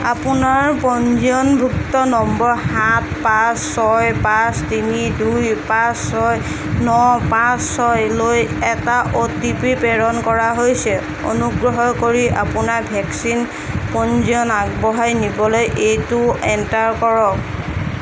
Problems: constant background noise